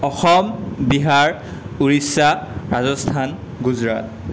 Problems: constant background noise